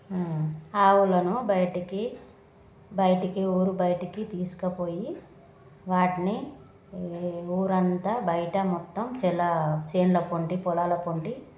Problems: constant background noise, background conversations at intervals